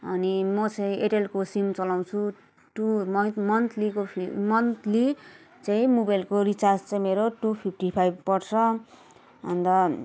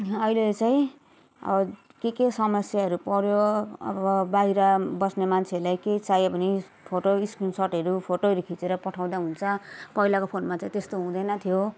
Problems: continuous background conversations